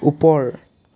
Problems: constant background noise